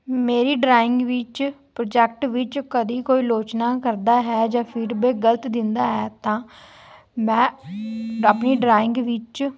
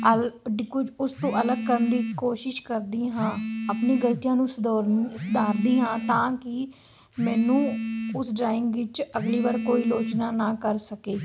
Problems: constant background noise